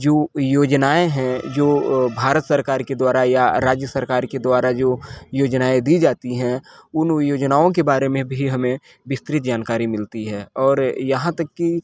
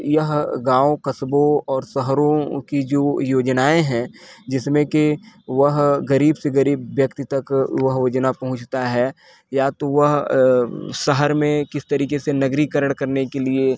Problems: constant background noise